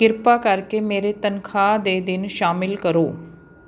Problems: constant background noise